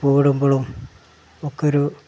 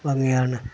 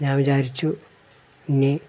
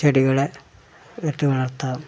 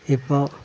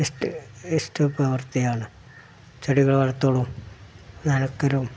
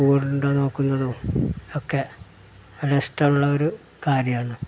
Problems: background sounds at intervals